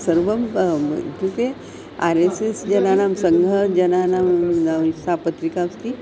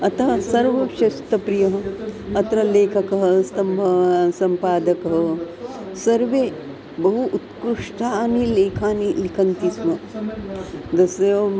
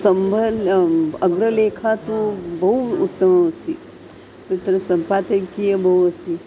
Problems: constant background noise, continuous background conversations